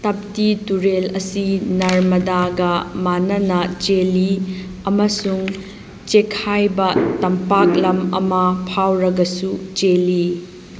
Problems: constant background noise